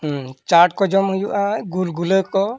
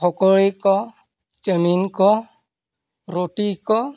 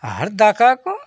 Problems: none marked